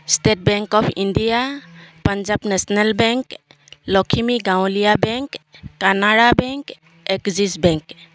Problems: constant background noise